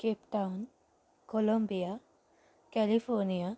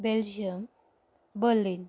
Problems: none marked